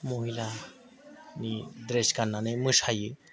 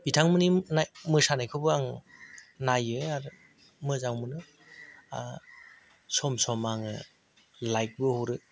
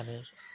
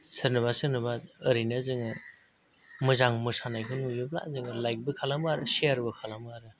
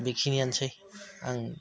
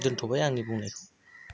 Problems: none marked